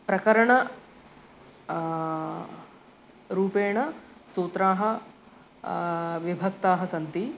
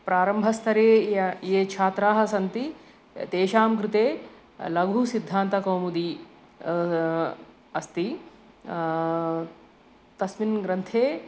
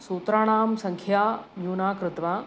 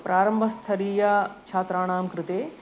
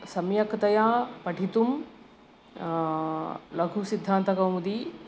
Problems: none marked